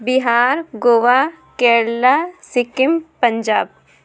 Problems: none marked